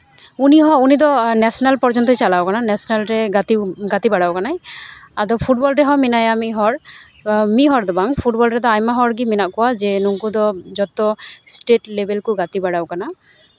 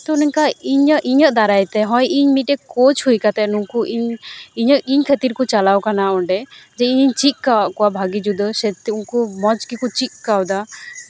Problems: constant background noise, continuous background conversations